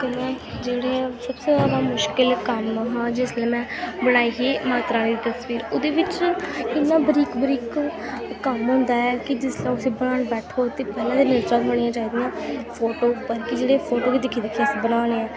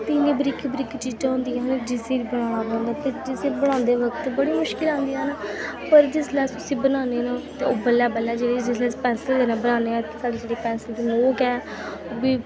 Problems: constant background noise, background conversations at intervals